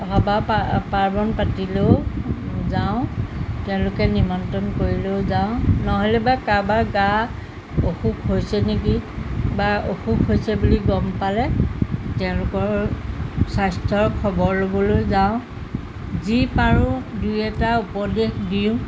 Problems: constant background noise